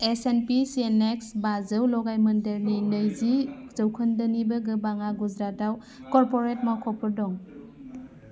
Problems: constant background noise